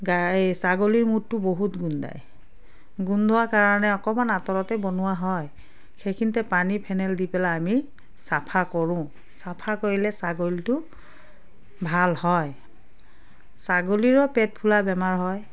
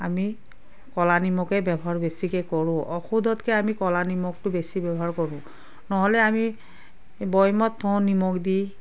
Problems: constant background noise